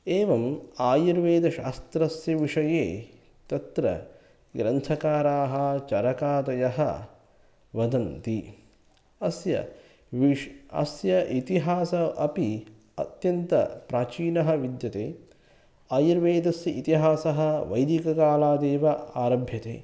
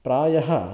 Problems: none marked